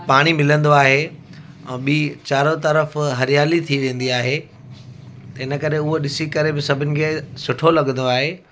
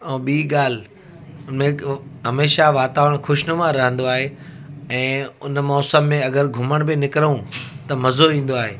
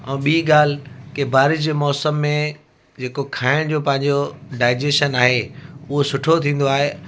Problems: constant background noise